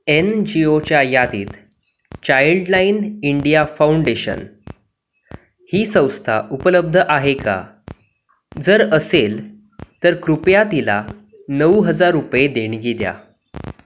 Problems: constant background noise